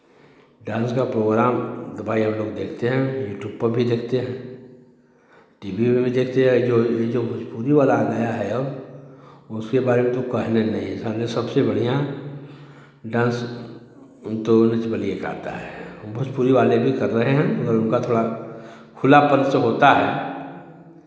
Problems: none marked